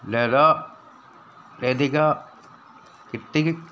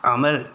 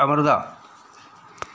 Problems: constant background noise